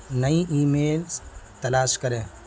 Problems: constant background noise